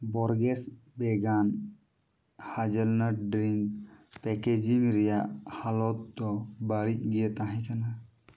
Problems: background sounds at intervals